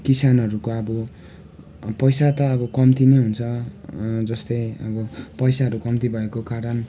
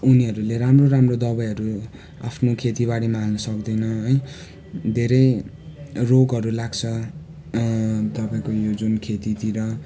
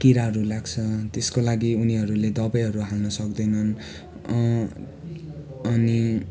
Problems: constant background noise